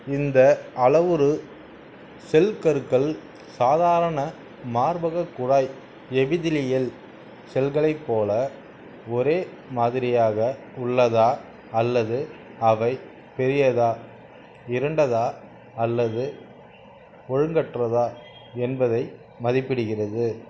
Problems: none marked